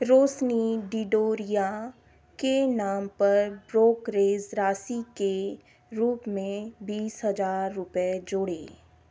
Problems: none marked